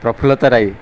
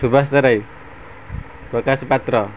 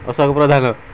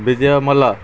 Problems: constant background noise